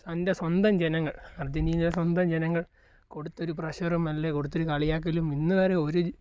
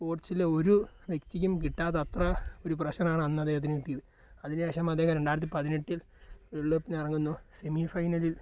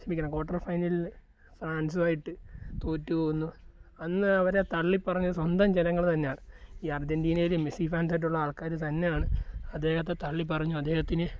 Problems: low volume